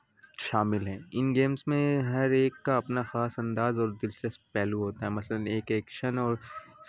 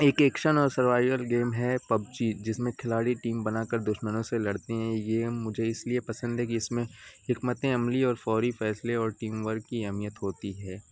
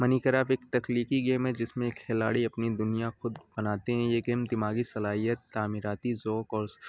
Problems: constant background noise